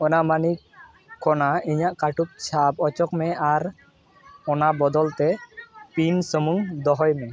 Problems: background sounds at intervals, continuous background conversations